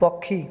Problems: none marked